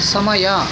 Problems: background sounds at intervals